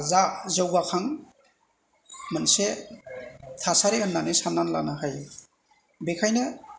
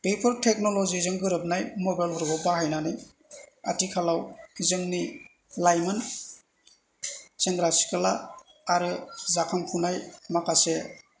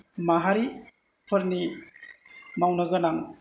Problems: none marked